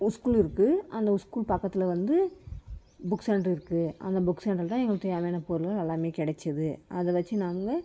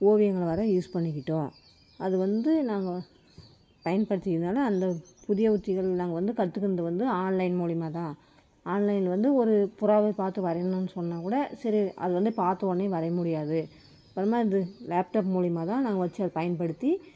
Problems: background sounds at intervals